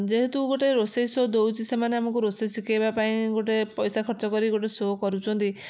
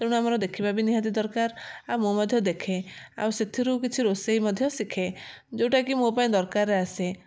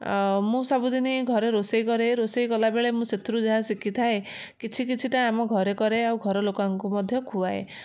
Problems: none marked